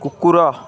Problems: constant background noise